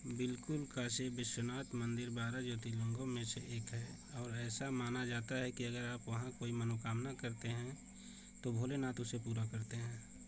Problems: constant background noise